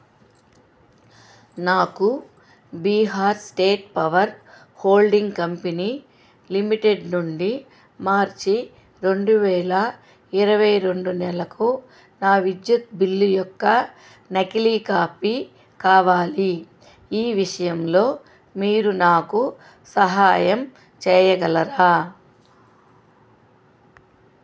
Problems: constant background noise